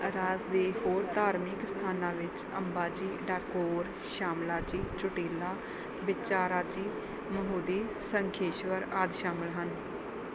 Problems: constant background noise